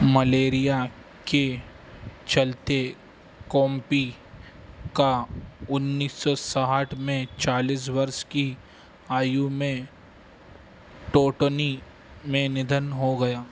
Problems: none marked